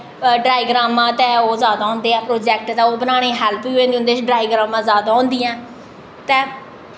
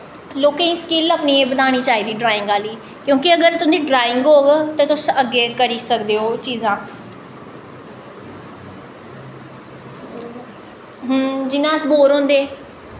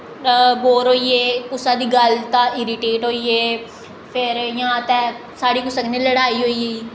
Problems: echo